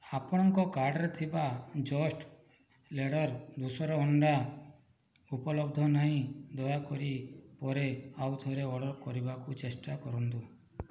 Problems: low volume